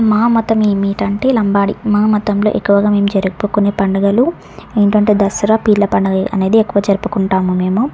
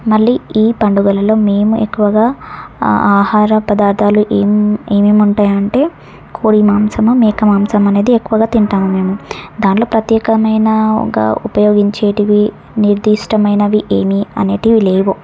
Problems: none marked